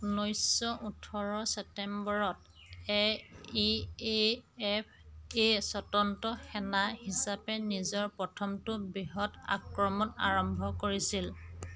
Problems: none marked